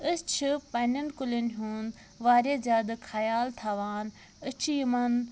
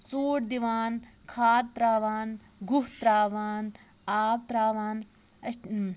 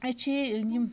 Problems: constant background noise